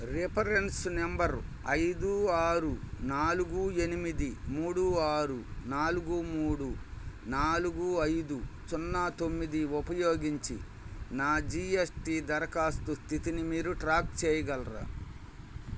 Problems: constant background noise